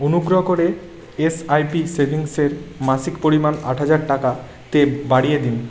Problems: none marked